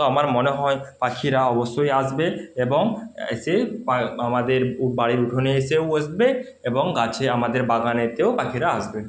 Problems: background sounds at intervals